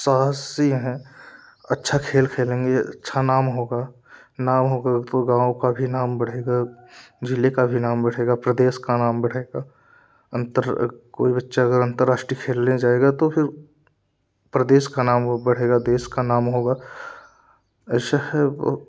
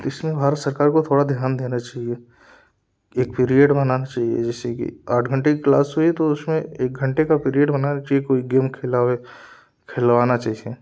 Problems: none marked